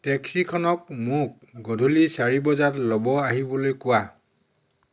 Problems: constant background noise